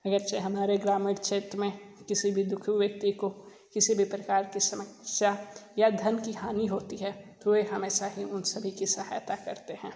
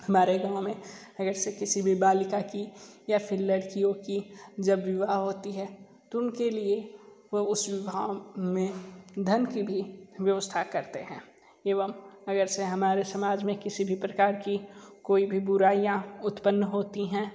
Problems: low volume